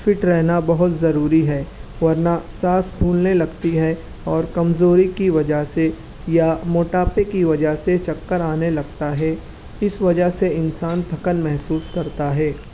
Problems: constant background noise